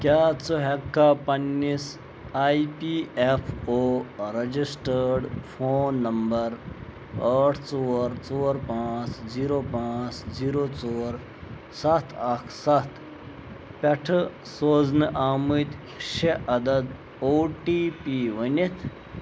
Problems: constant background noise